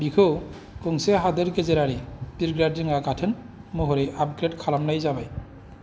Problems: none marked